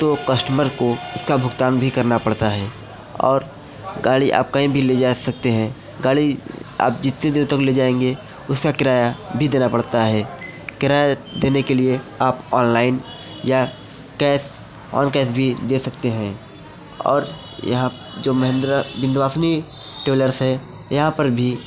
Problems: background conversations at intervals